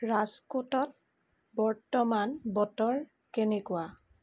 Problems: none marked